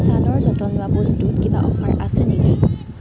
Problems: constant background noise, background conversations at intervals